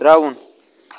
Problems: background conversations at intervals